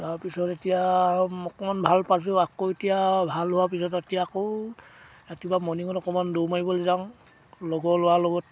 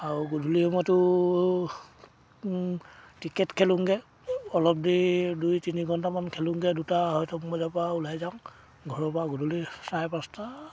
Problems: background sounds at intervals